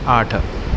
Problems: constant background noise